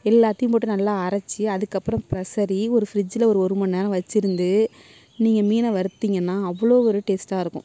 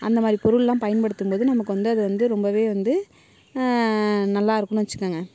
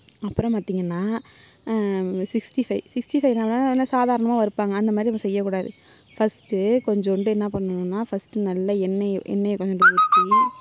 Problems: none marked